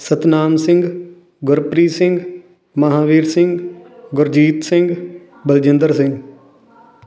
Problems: background conversations at intervals